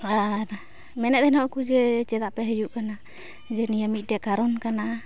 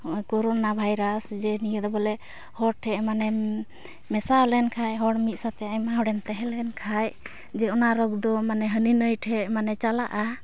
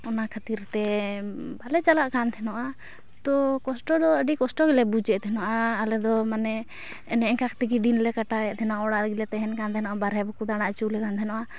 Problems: background sounds at intervals